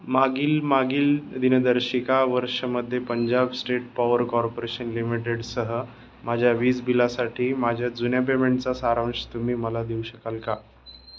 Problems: constant background noise